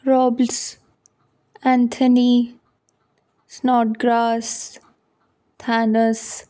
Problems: none marked